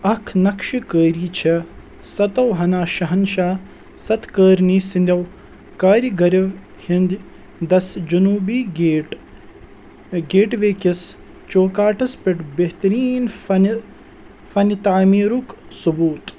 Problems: constant background noise